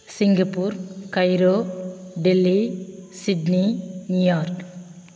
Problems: none marked